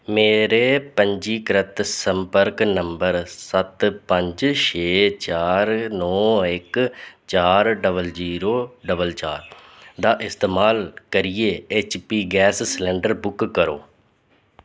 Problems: none marked